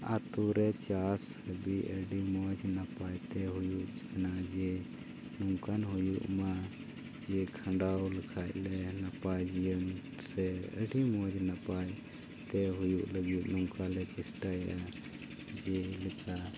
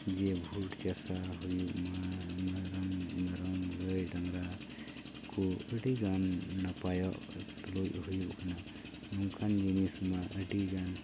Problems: constant background noise